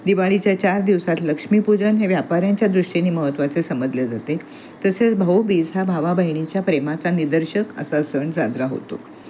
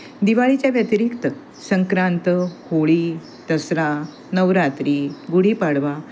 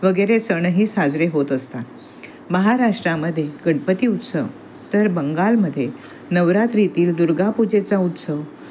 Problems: constant background noise, continuous background conversations